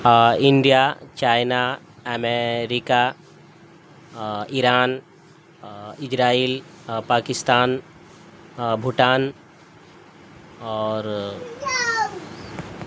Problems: constant background noise